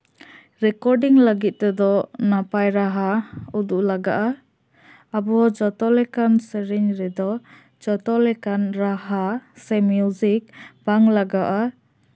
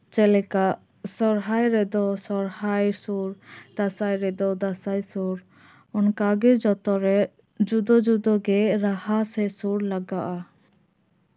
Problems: none marked